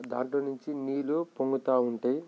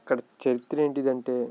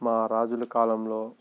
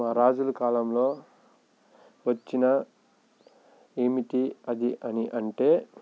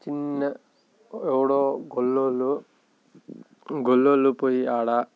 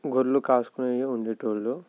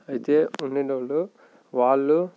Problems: background sounds at intervals